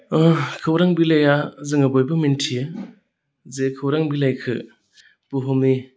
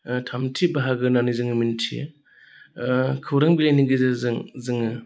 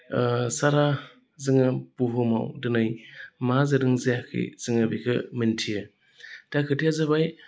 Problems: constant background noise